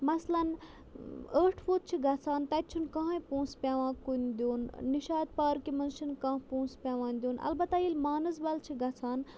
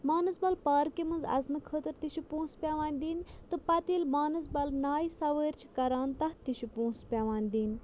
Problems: background sounds at intervals